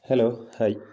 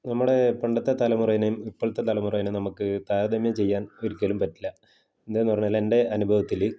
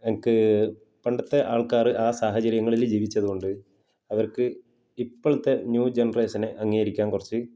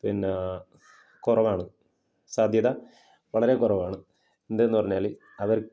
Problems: none marked